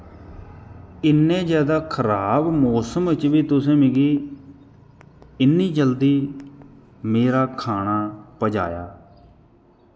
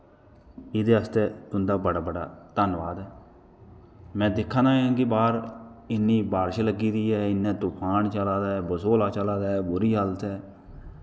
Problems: constant background noise